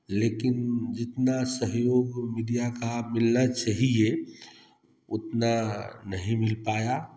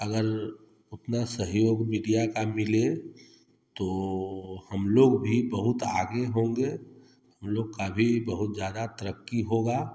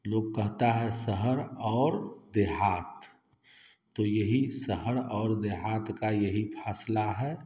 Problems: constant background noise